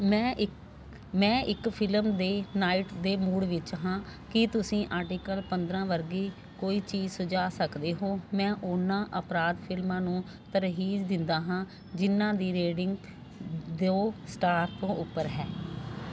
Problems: constant background noise